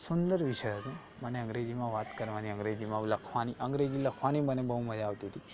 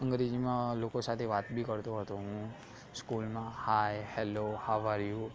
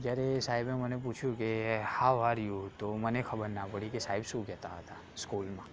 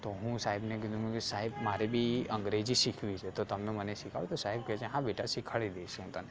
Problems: constant background noise, background conversations at intervals